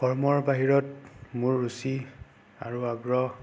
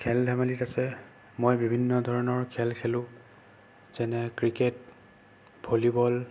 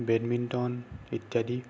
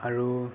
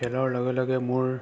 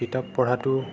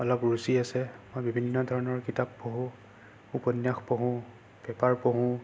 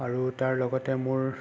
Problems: constant background noise